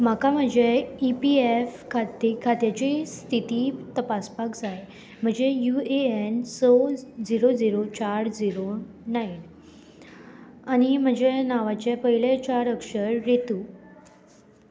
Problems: none marked